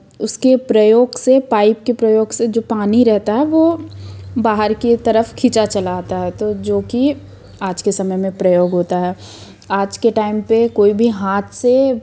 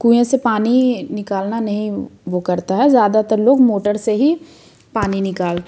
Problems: background sounds at intervals